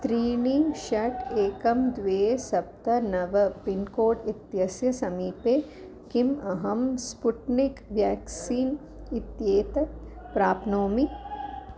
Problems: constant background noise